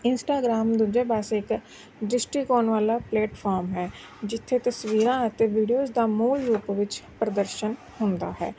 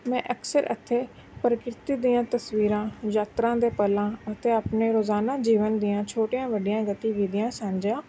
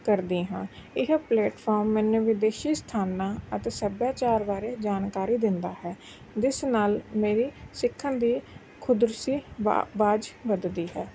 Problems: background sounds at intervals